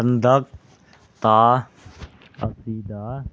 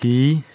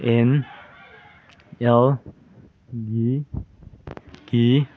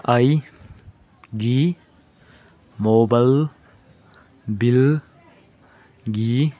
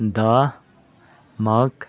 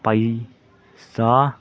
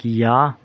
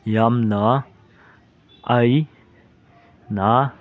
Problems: background sounds at intervals, background conversations at intervals